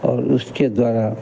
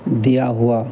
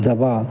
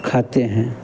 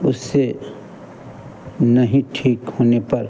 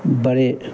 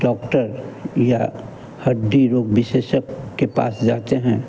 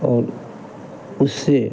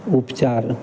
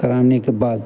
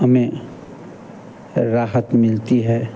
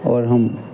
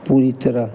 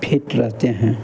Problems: constant background noise